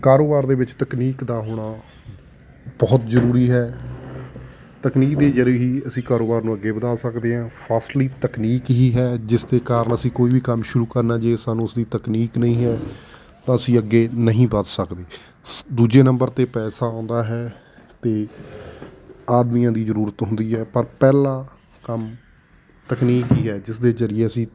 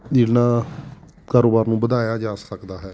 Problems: none marked